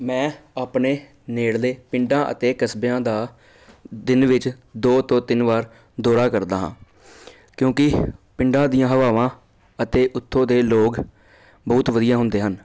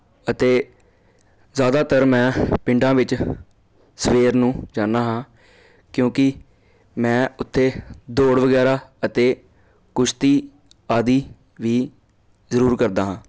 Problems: constant background noise